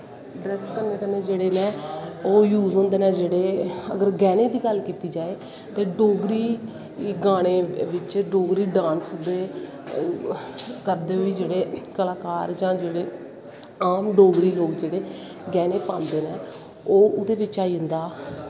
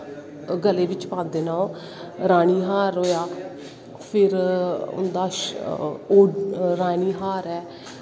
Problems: constant background noise